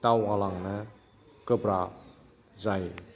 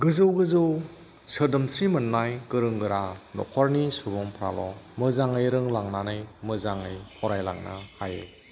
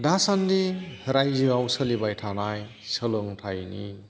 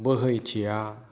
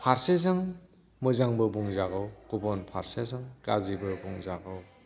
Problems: background sounds at intervals, background conversations at intervals